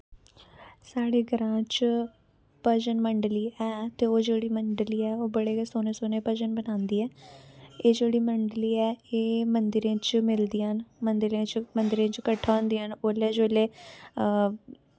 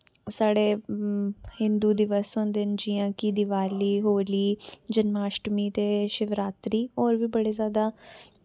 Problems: constant background noise